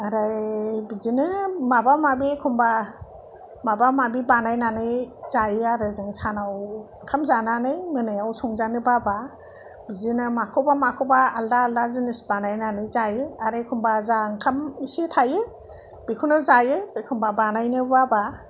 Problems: none marked